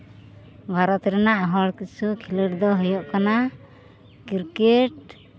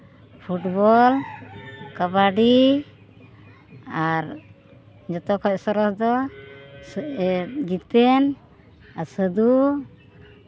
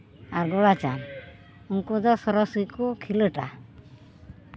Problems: background sounds at intervals